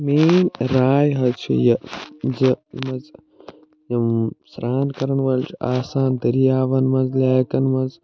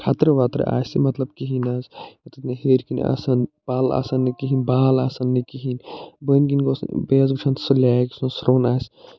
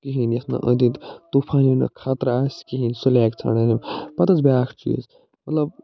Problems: none marked